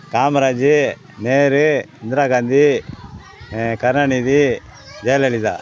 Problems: constant background noise, background conversations at intervals